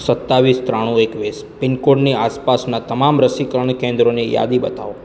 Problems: constant background noise